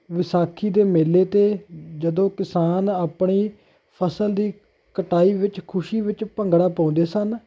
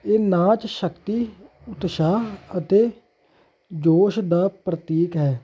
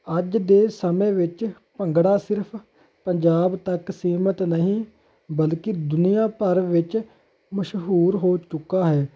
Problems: none marked